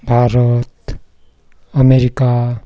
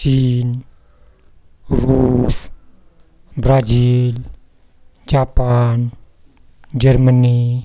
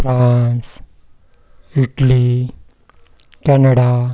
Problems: none marked